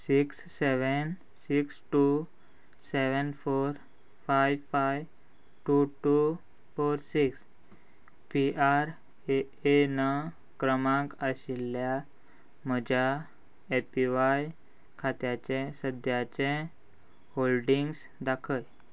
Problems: none marked